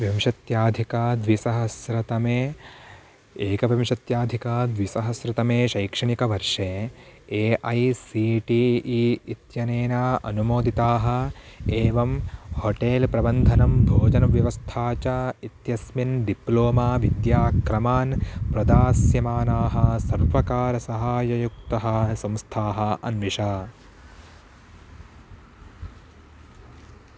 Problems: background sounds at intervals